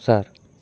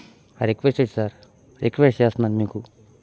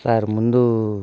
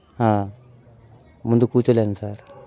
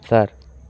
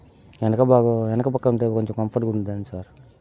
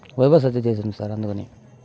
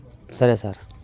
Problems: background sounds at intervals